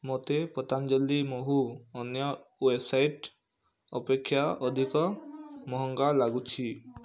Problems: low volume